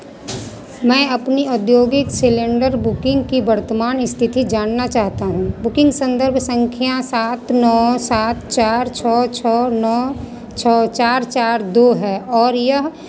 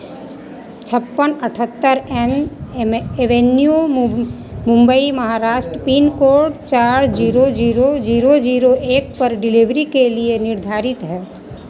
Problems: none marked